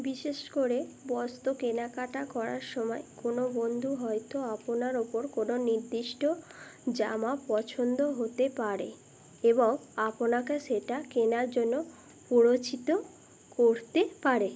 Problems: none marked